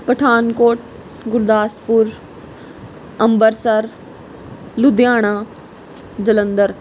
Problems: background sounds at intervals